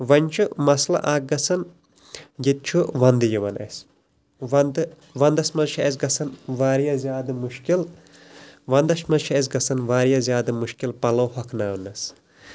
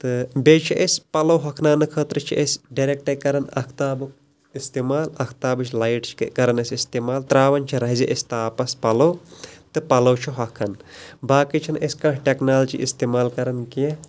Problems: constant background noise